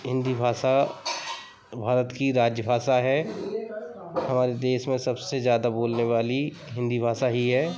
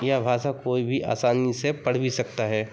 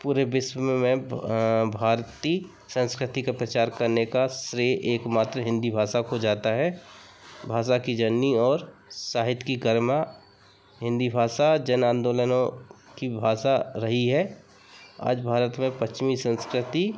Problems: constant background noise, background conversations at intervals